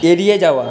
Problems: constant background noise